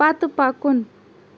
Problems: background sounds at intervals